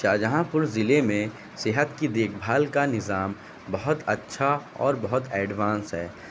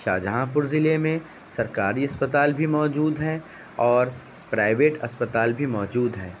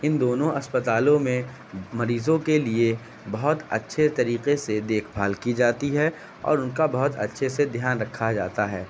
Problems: constant background noise